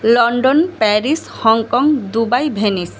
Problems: none marked